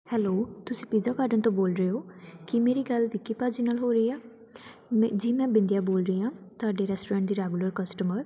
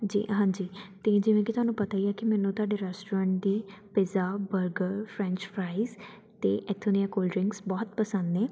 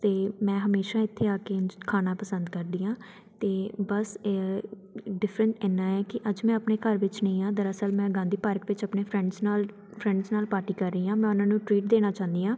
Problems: none marked